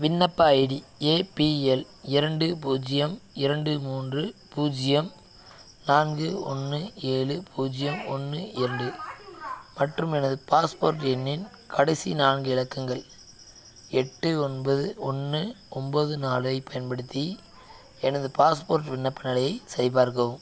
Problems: background conversations at intervals